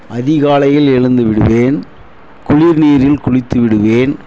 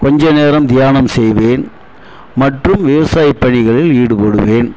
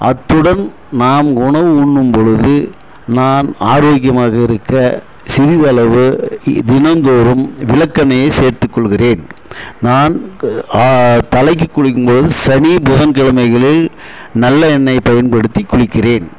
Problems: none marked